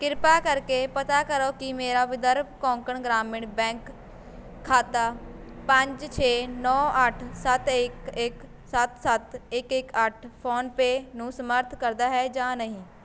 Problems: constant background noise